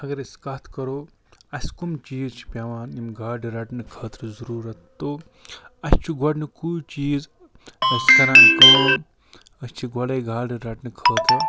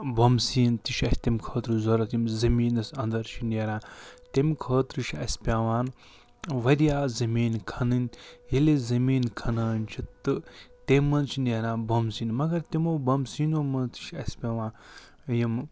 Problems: background sounds at intervals